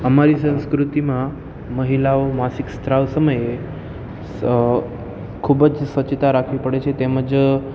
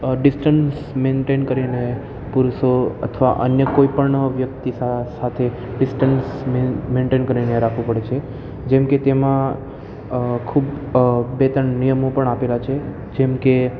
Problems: constant background noise